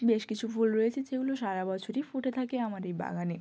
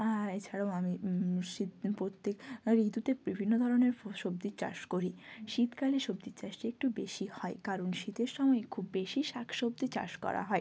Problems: none marked